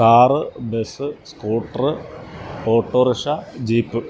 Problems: constant background noise